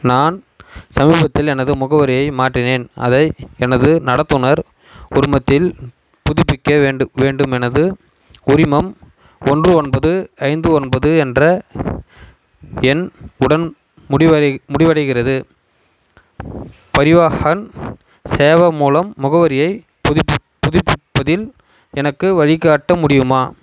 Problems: constant background noise